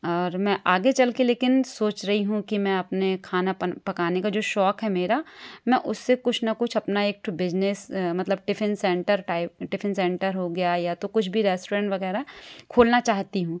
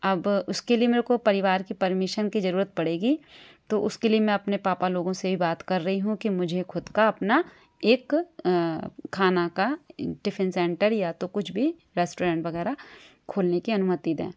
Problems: background sounds at intervals